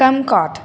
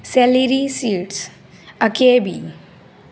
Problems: none marked